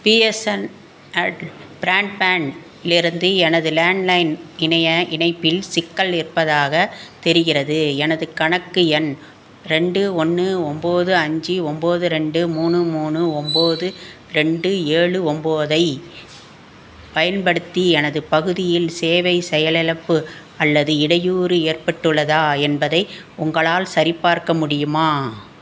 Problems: constant background noise